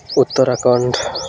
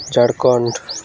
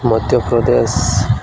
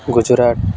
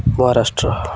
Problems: constant background noise